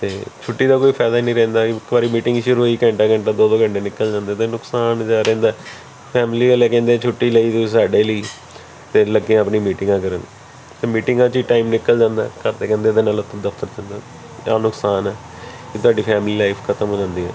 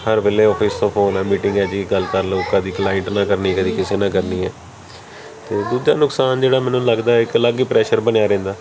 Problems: continuous background conversations